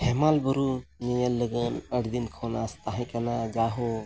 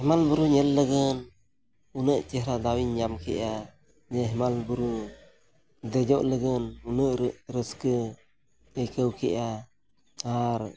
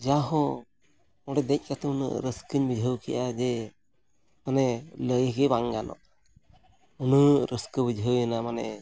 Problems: background sounds at intervals